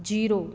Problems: none marked